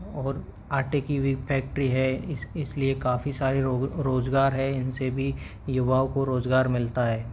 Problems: background sounds at intervals